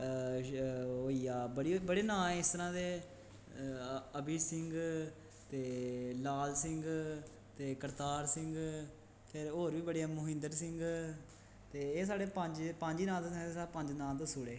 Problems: background sounds at intervals, echo